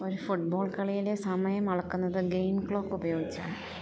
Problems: none marked